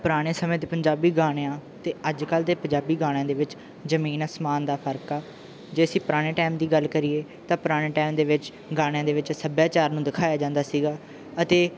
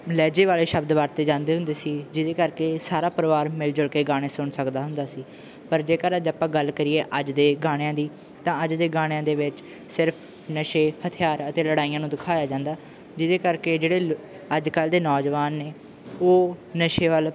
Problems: background sounds at intervals